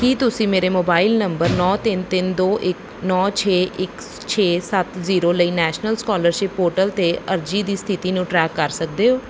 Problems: background sounds at intervals